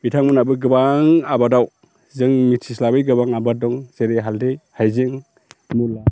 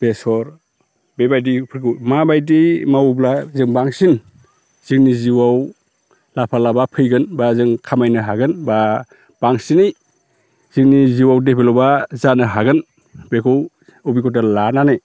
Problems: constant background noise